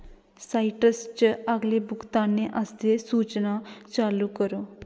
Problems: background sounds at intervals